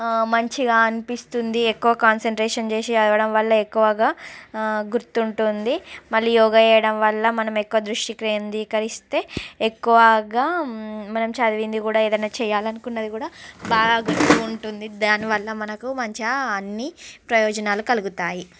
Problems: constant background noise, background conversations at intervals